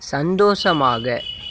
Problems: background sounds at intervals